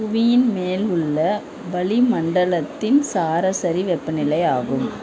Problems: constant background noise, continuous background conversations